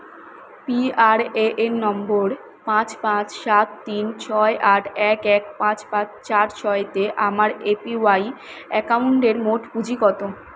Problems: constant background noise